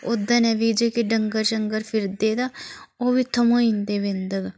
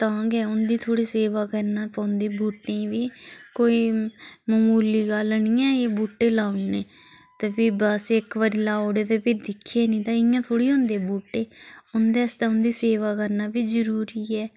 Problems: none marked